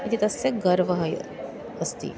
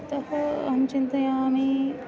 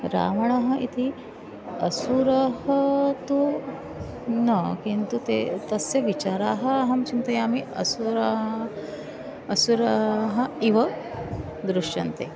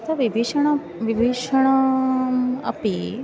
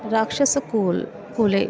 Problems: constant background noise, continuous background conversations